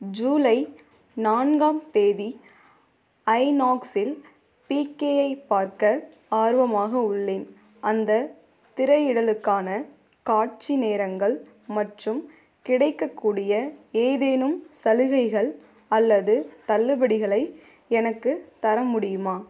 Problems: none marked